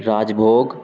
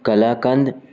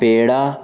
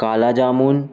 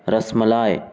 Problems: constant background noise